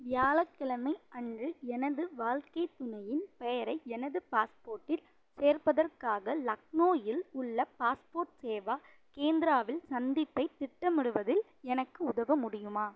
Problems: none marked